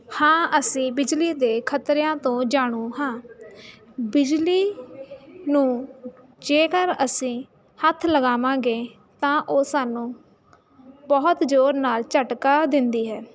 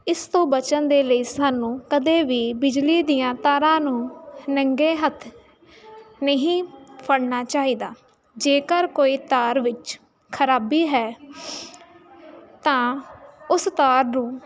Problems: constant background noise